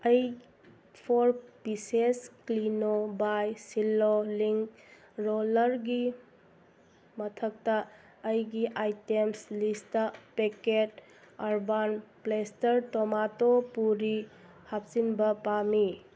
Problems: background sounds at intervals